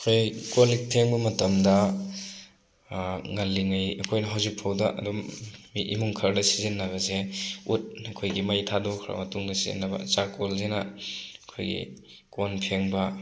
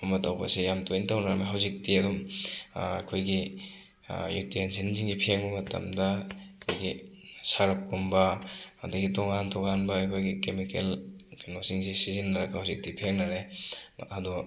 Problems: background sounds at intervals